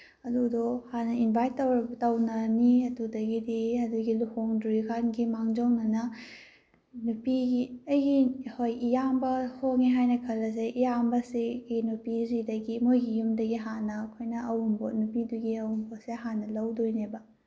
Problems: none marked